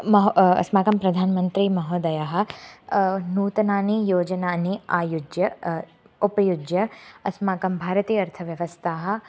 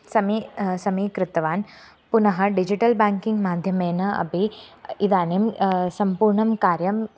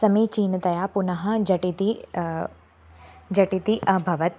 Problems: constant background noise